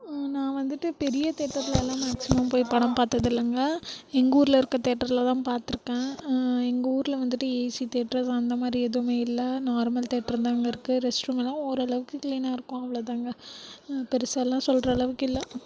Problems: background conversations at intervals, low volume